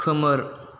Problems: none marked